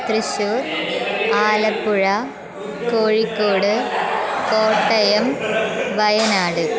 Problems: constant background noise